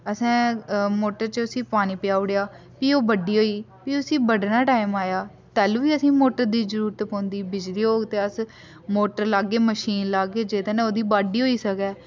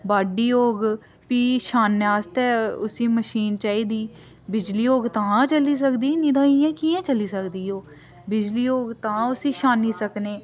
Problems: none marked